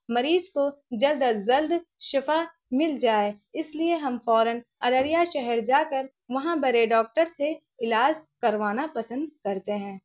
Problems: none marked